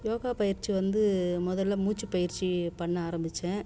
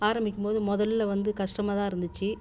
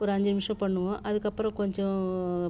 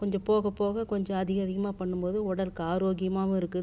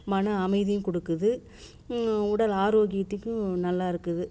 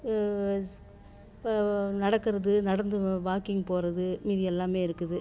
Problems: low volume